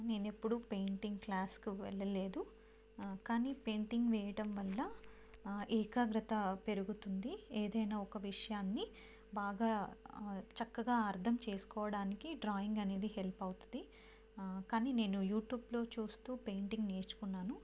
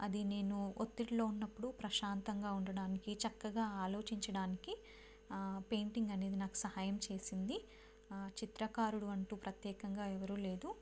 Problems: low volume